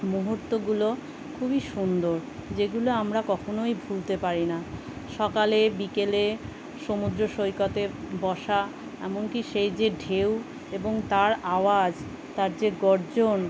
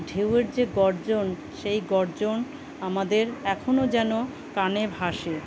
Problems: constant background noise